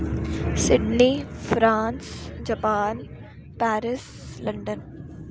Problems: constant background noise